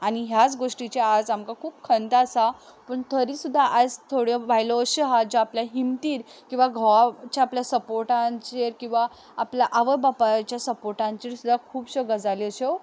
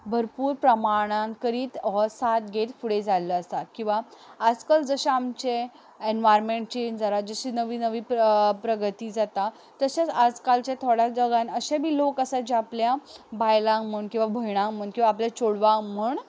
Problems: background sounds at intervals